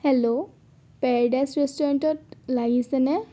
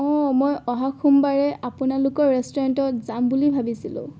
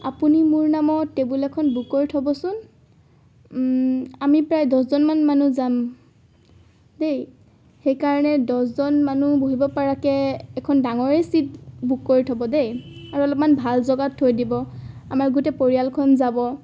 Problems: none marked